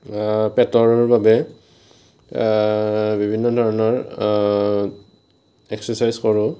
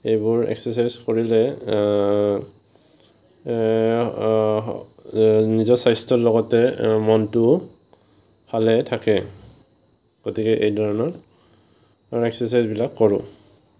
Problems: none marked